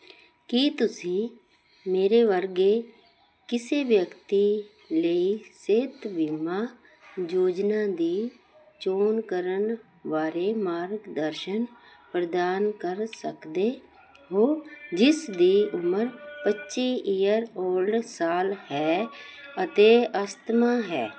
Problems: none marked